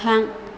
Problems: none marked